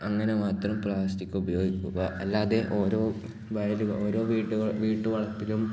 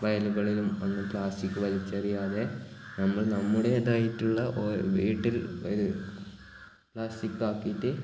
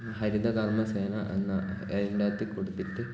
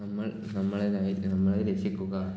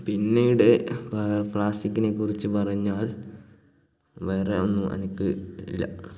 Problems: background sounds at intervals